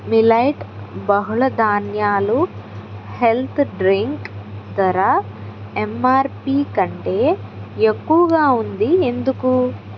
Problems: constant background noise